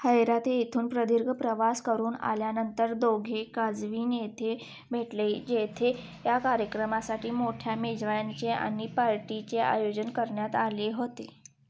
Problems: background sounds at intervals